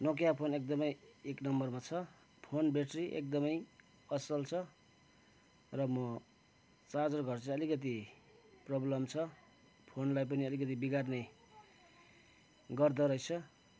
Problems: background sounds at intervals